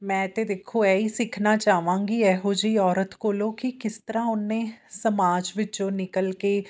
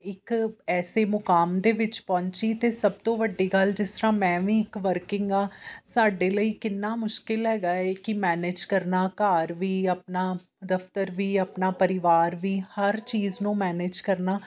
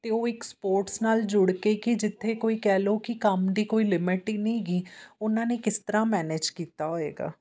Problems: none marked